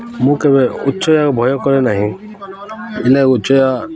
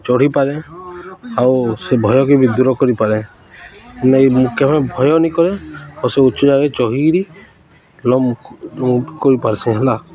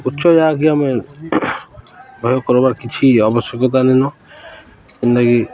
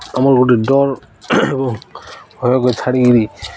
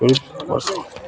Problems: constant background noise, continuous background conversations